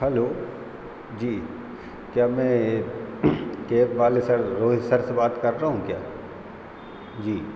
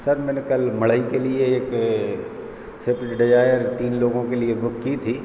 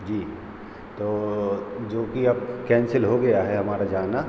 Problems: constant background noise